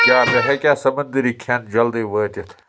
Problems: constant background noise